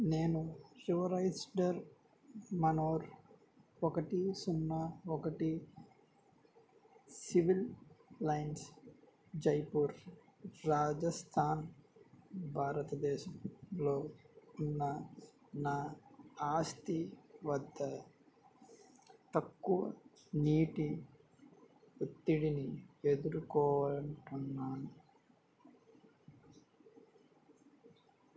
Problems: low volume